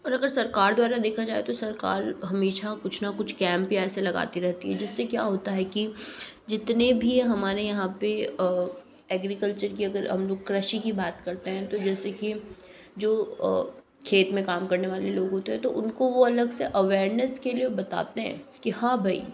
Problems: background sounds at intervals